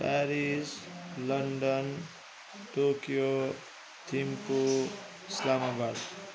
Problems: constant background noise